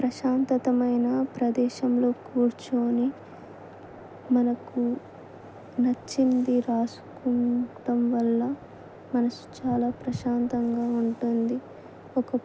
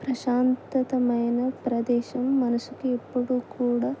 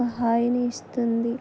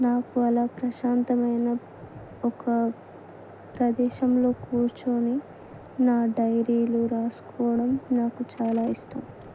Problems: none marked